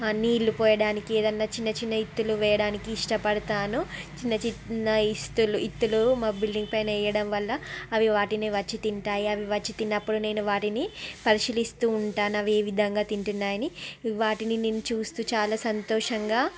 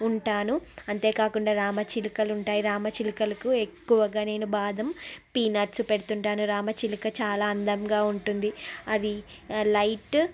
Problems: none marked